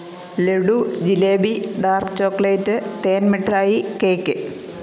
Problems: constant background noise